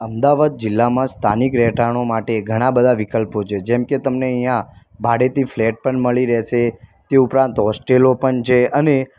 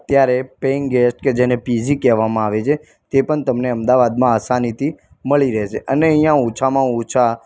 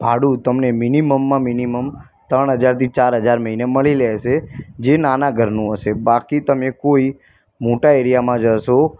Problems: none marked